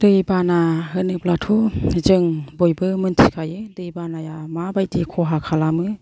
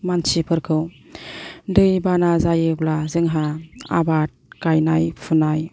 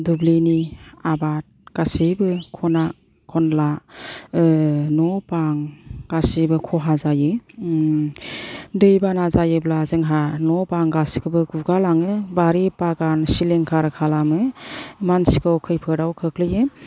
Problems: none marked